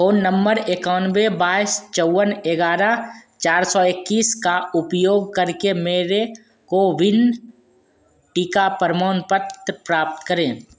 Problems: none marked